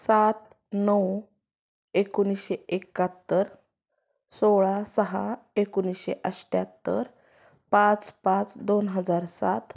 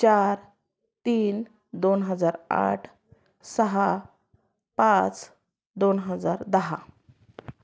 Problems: background sounds at intervals